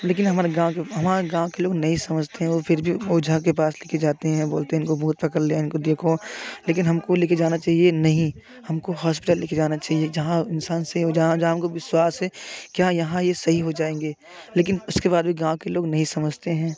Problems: none marked